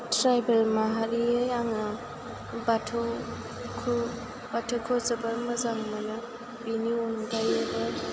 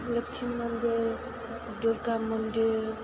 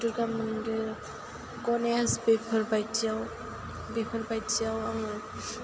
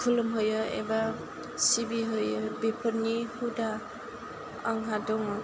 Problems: low volume